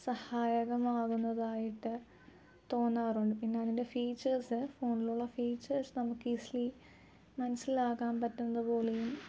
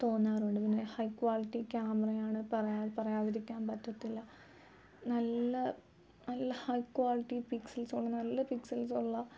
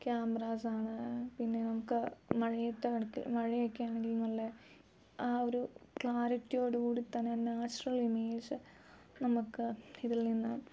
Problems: none marked